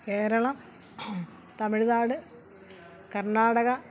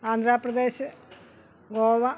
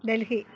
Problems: none marked